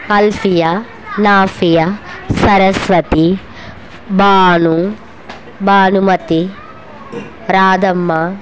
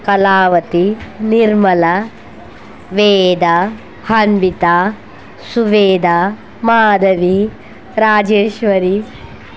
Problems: none marked